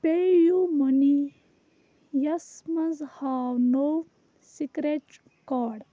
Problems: background sounds at intervals, low volume